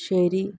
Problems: low volume